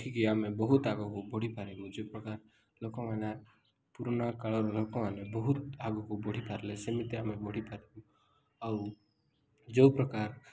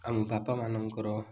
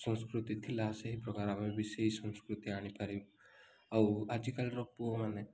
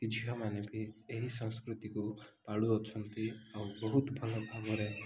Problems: none marked